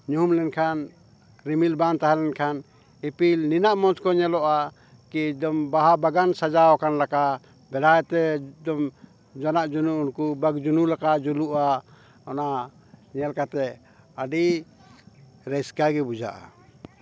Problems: background conversations at intervals